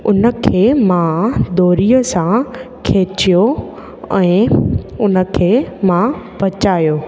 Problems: constant background noise, echo